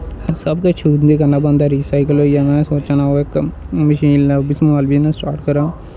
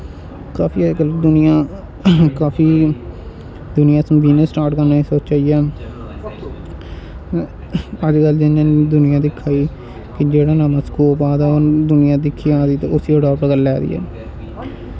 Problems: constant background noise